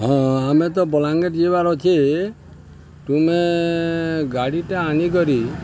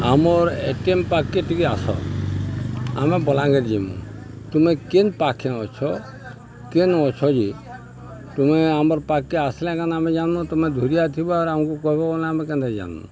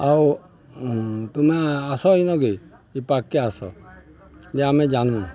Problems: constant background noise, continuous background conversations